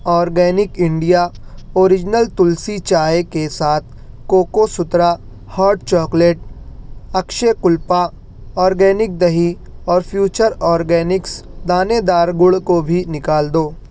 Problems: none marked